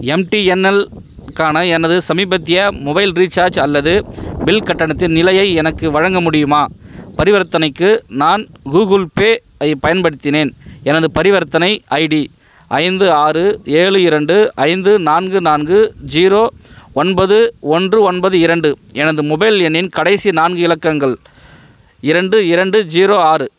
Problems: none marked